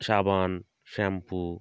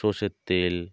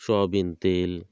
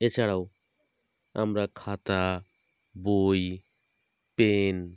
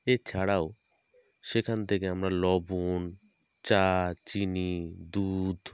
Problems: background sounds at intervals